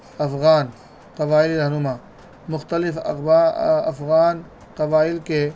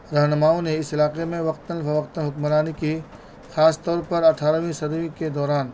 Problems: constant background noise